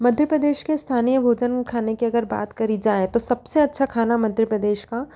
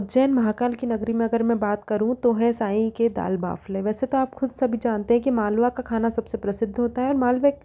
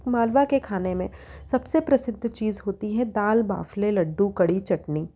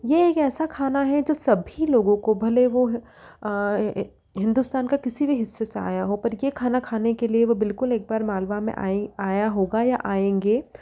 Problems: none marked